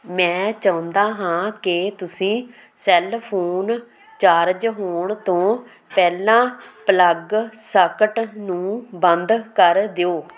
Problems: constant background noise